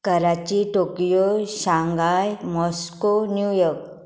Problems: constant background noise